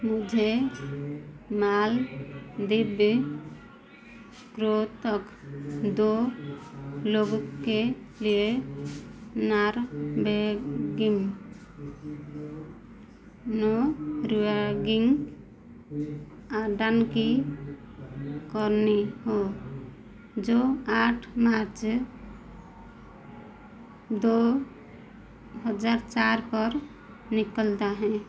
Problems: constant background noise